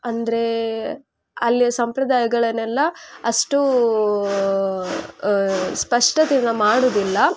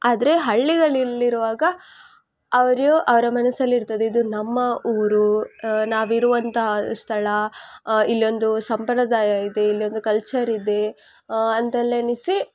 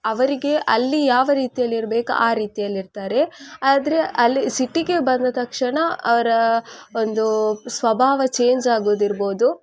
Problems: constant background noise